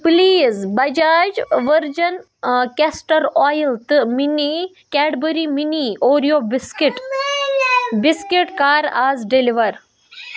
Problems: constant background noise, background conversations at intervals